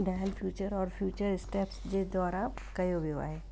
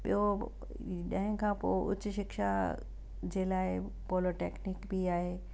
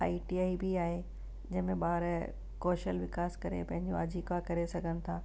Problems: constant background noise